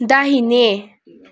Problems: background conversations at intervals